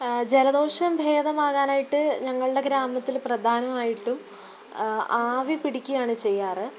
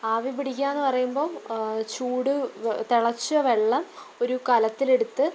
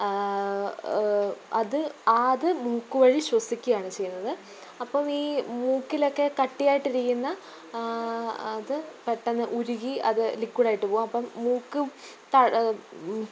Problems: background sounds at intervals, low volume